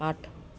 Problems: background sounds at intervals